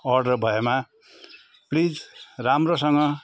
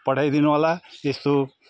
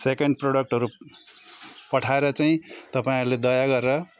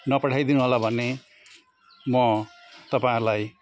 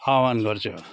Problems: constant background noise, continuous background conversations